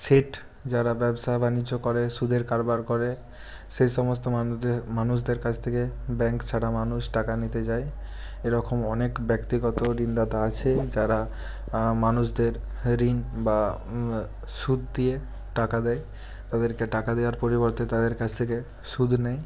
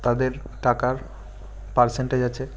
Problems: constant background noise